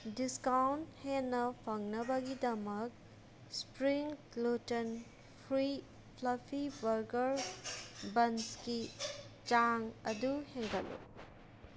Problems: background sounds at intervals